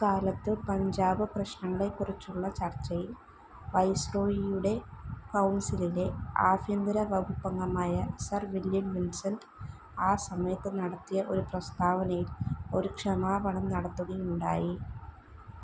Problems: low volume